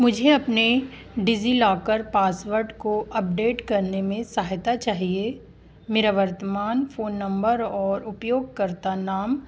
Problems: constant background noise